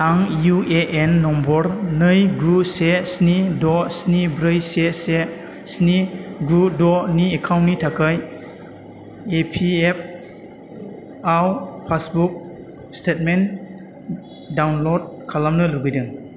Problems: constant background noise